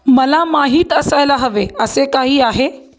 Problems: none marked